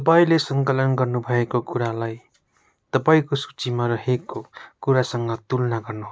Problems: background sounds at intervals